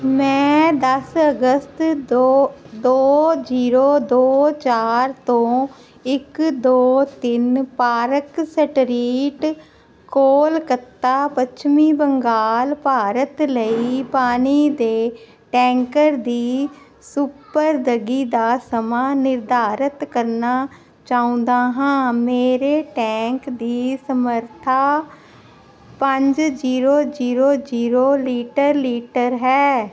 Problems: none marked